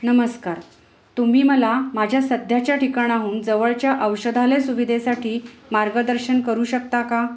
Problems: none marked